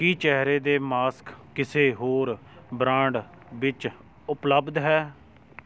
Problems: background conversations at intervals